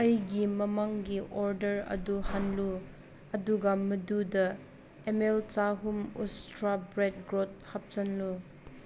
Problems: constant background noise